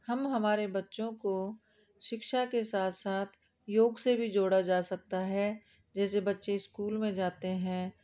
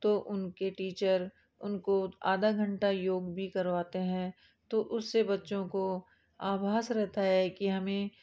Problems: background sounds at intervals